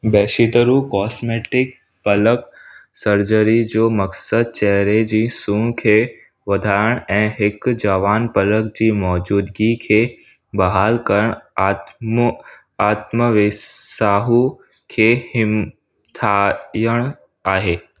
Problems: none marked